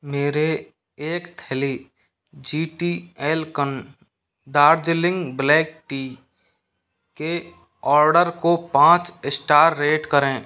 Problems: background sounds at intervals